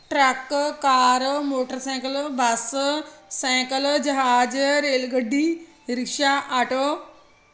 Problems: constant background noise